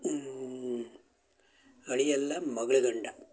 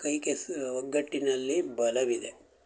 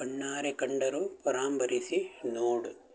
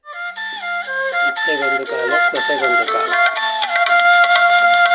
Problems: background sounds at intervals